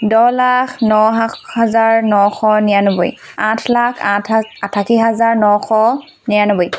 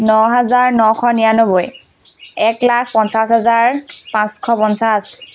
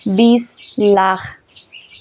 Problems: constant background noise